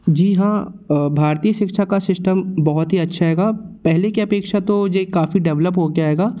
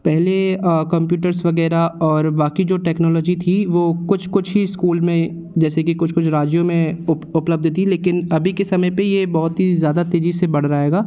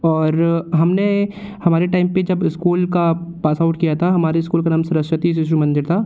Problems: none marked